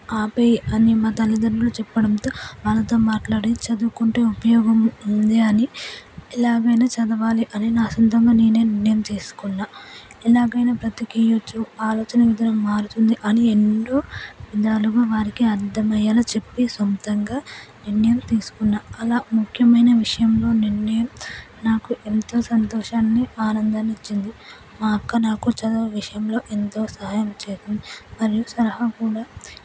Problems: low volume